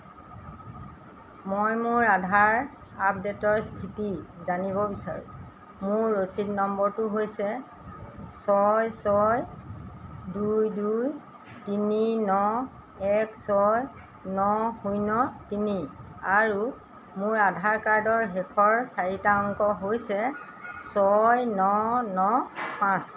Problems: constant background noise